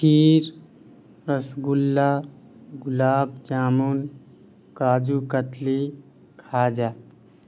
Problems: none marked